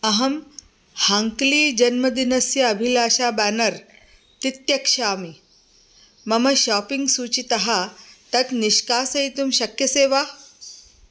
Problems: constant background noise